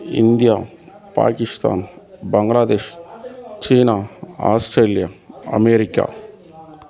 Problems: continuous background conversations